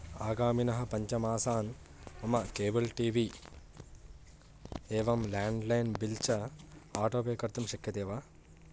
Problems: none marked